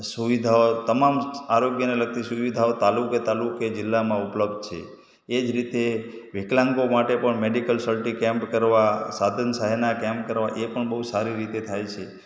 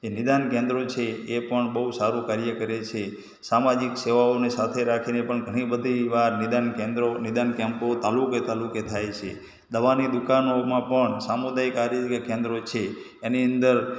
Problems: echo